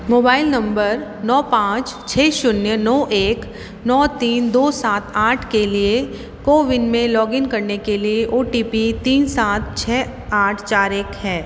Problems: constant background noise, echo